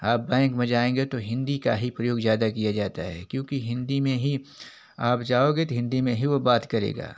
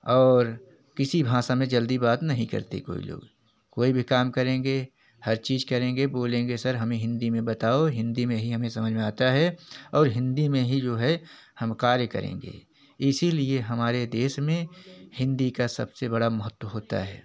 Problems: constant background noise